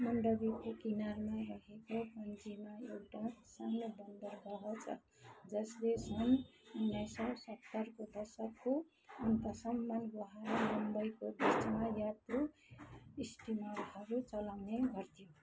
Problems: constant background noise, continuous background conversations, low volume